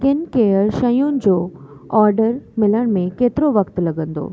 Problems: constant background noise, echo, low volume